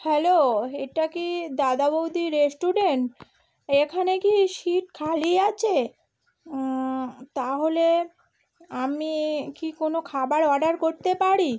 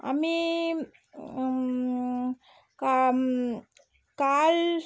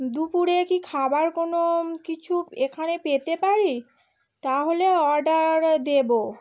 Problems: constant background noise